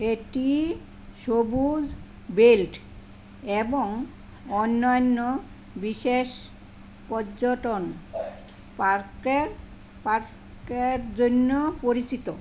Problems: constant background noise